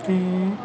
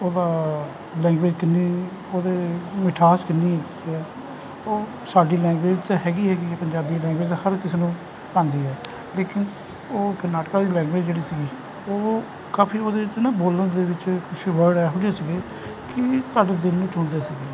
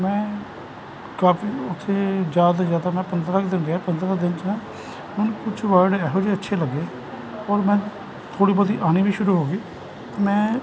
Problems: constant background noise